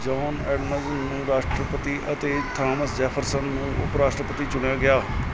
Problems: background sounds at intervals